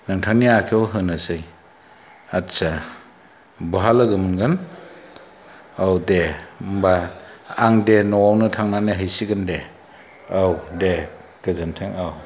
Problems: none marked